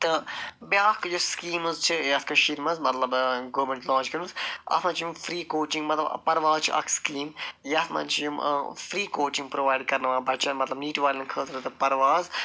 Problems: none marked